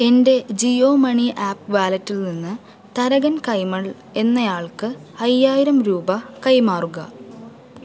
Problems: none marked